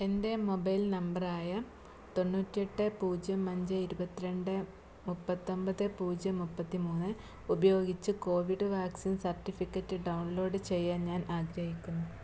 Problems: none marked